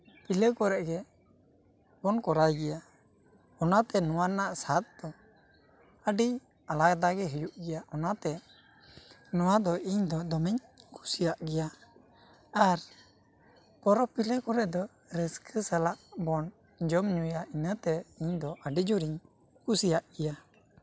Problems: none marked